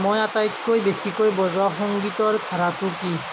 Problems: constant background noise